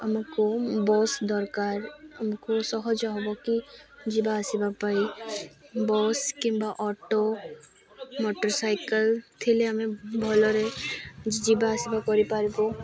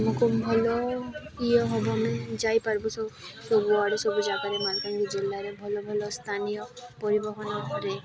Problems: constant background noise, continuous background conversations